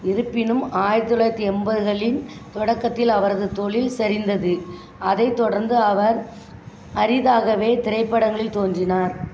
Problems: continuous background conversations